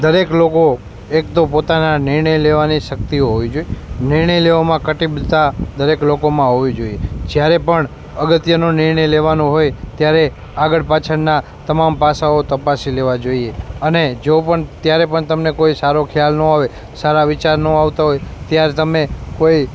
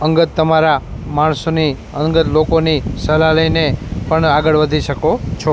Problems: background sounds at intervals